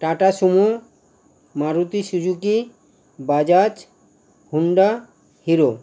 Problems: constant background noise